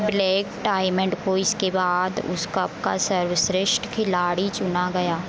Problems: constant background noise